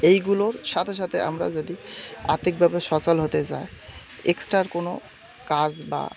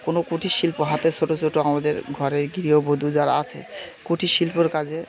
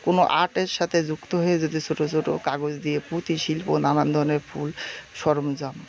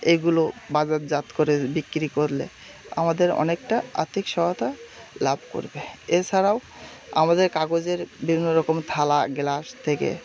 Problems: none marked